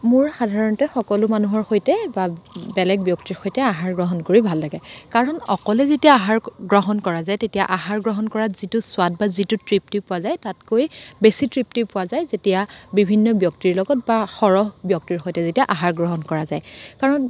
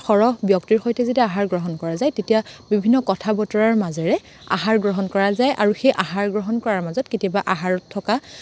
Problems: none marked